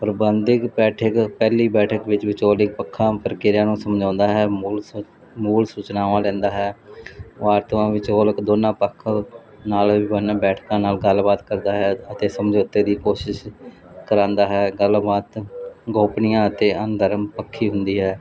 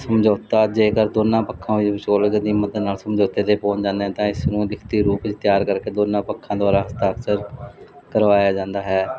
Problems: constant background noise